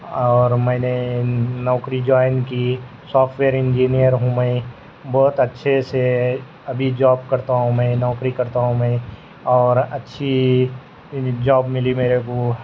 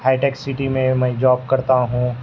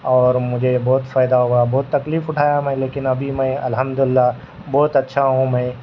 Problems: constant background noise